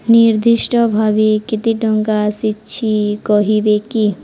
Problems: none marked